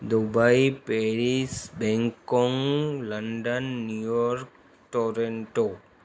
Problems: constant background noise